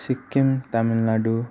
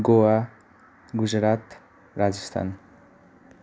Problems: none marked